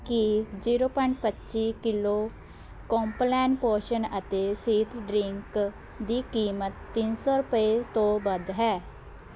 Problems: constant background noise